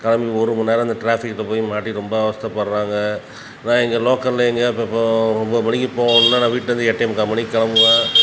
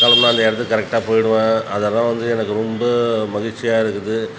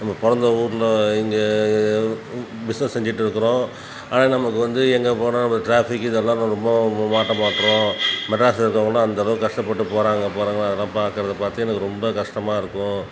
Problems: background sounds at intervals